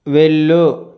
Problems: none marked